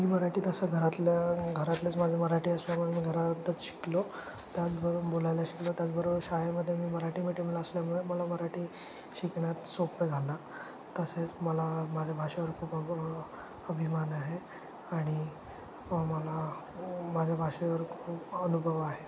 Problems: constant background noise